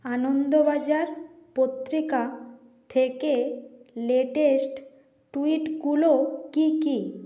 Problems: background sounds at intervals